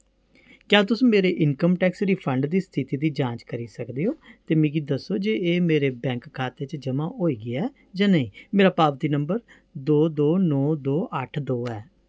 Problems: none marked